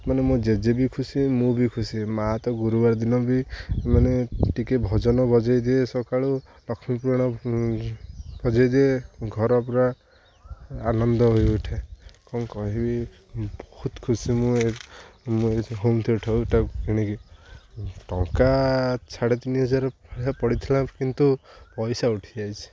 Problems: none marked